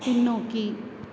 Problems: constant background noise